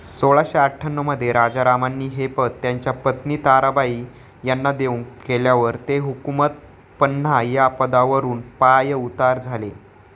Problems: constant background noise